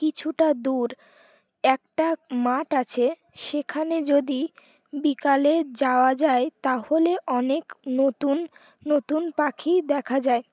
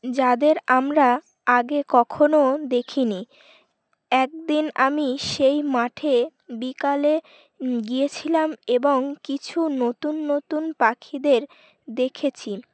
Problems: background sounds at intervals